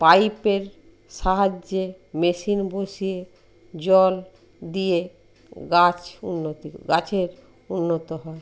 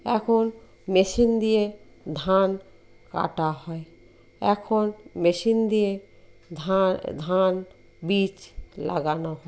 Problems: constant background noise